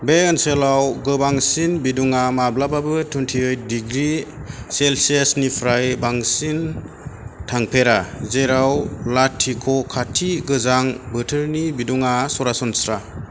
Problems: constant background noise